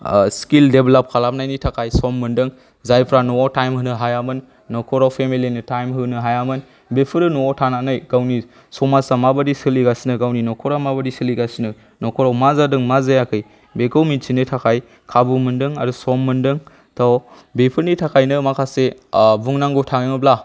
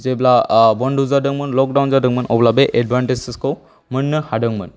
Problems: none marked